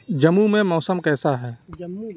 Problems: none marked